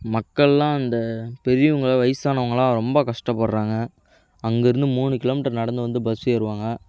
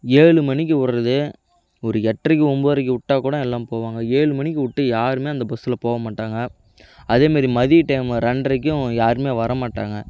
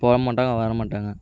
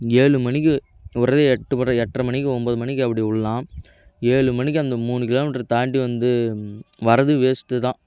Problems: none marked